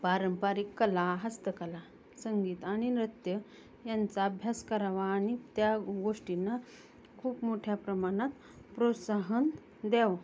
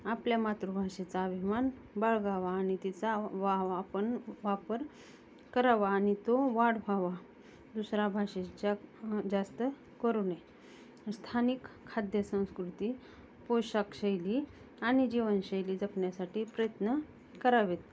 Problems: none marked